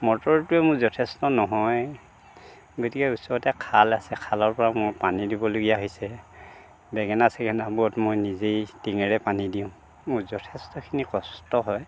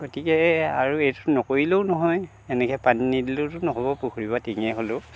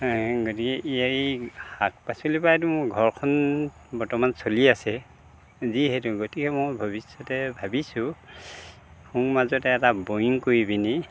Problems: constant background noise